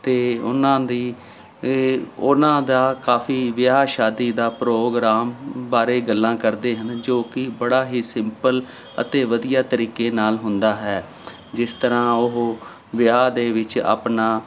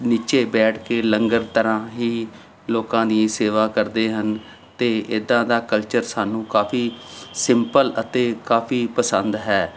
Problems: none marked